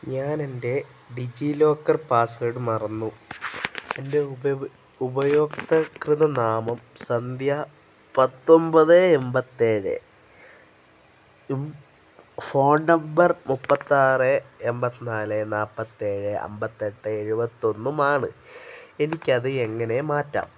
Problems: none marked